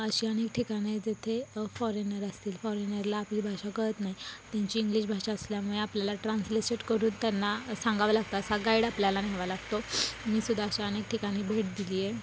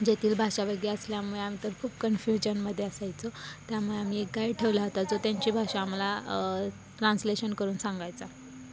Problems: constant background noise, background conversations at intervals